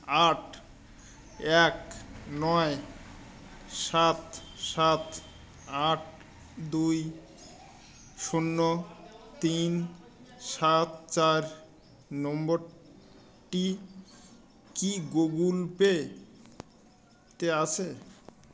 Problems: none marked